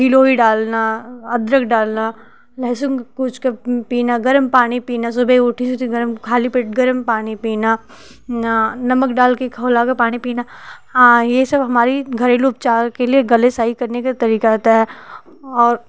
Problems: none marked